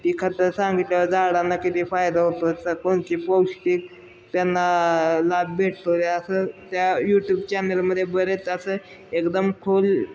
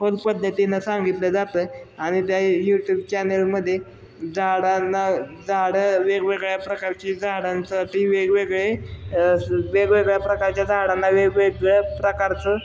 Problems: none marked